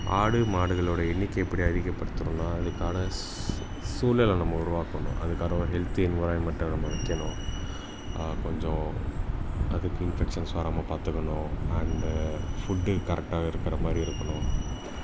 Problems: constant background noise